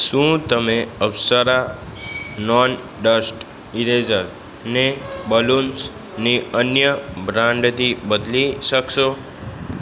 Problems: background sounds at intervals